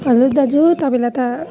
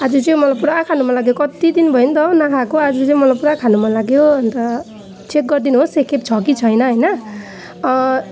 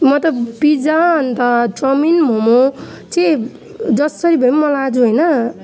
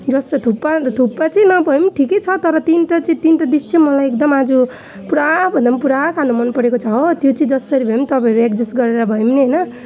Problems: background sounds at intervals